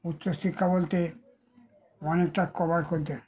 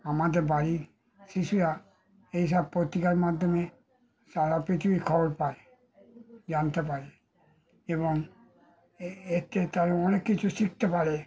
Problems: background sounds at intervals, background conversations at intervals